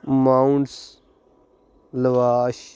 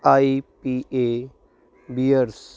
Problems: constant background noise